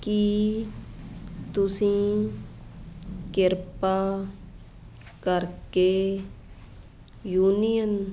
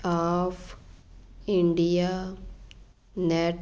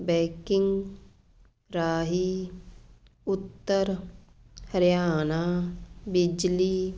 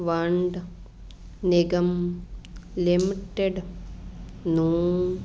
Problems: none marked